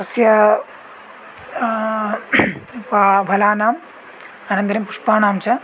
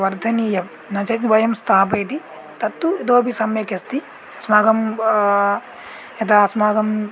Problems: background sounds at intervals